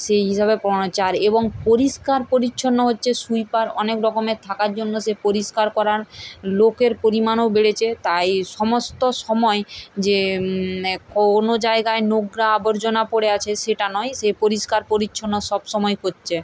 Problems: none marked